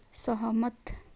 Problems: none marked